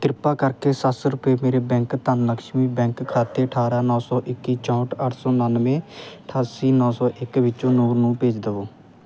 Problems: none marked